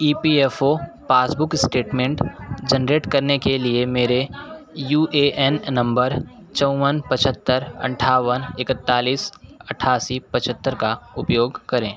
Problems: none marked